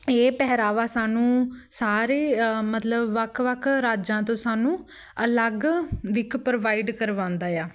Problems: background sounds at intervals, background conversations at intervals